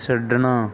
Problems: background sounds at intervals